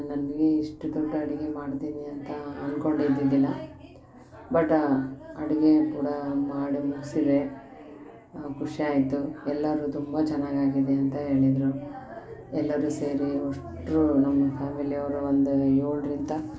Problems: none marked